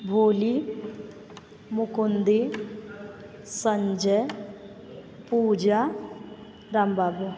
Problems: background sounds at intervals, background conversations at intervals